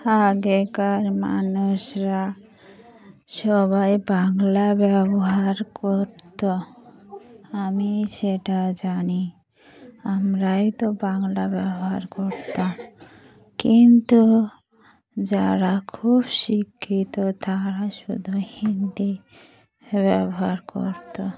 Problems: none marked